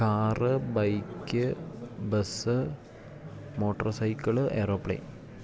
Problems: constant background noise